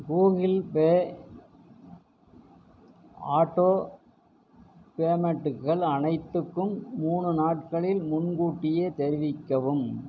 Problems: constant background noise